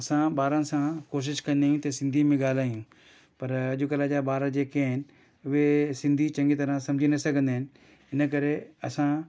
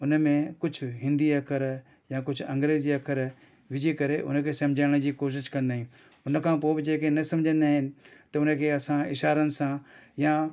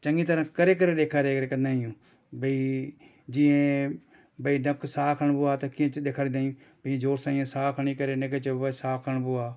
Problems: none marked